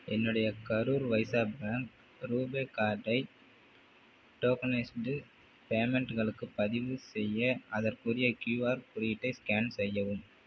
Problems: low volume